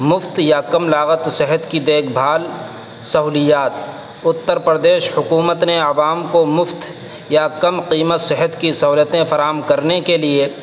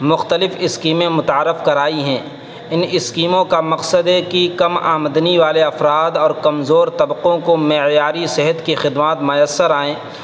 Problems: constant background noise, background conversations at intervals